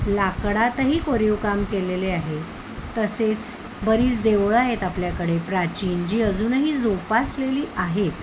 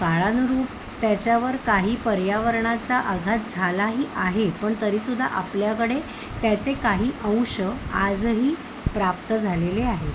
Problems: none marked